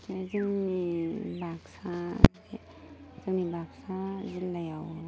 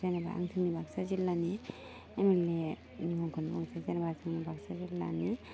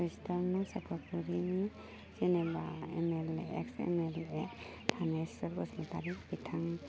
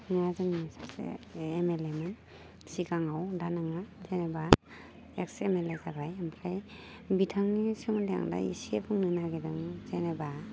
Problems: constant background noise